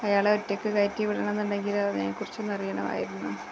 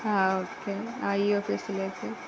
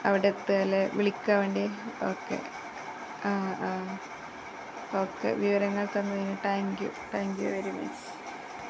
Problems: constant background noise, low volume